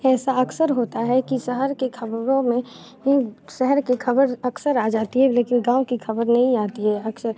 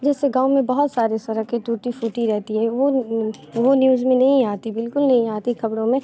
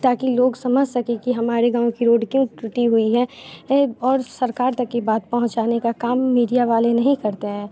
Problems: constant background noise